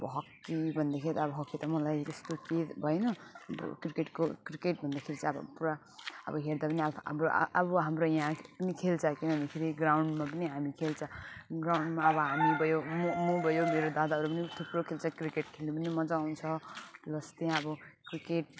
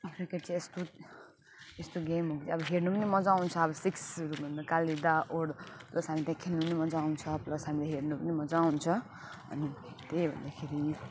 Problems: constant background noise, background conversations at intervals